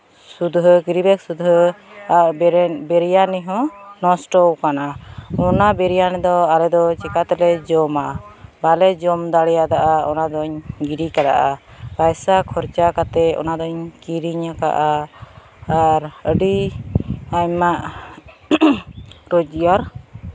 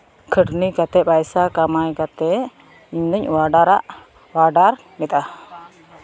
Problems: constant background noise, continuous background conversations